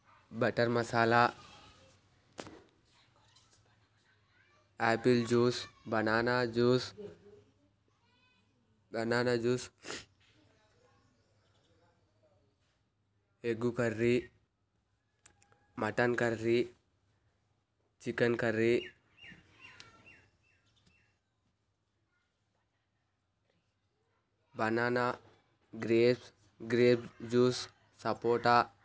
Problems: background sounds at intervals